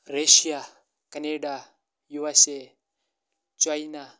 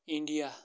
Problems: none marked